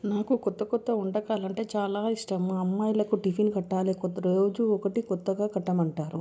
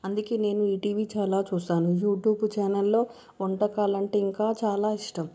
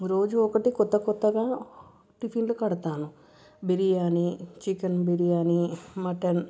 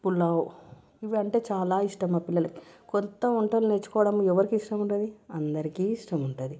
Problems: background sounds at intervals